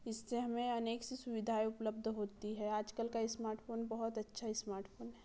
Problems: none marked